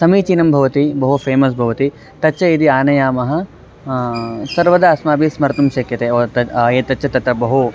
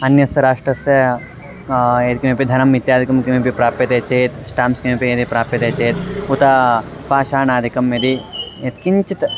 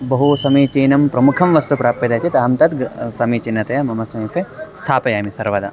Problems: background sounds at intervals